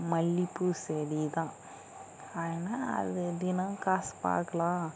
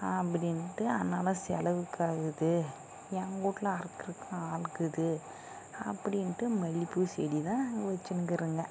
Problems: constant background noise, low volume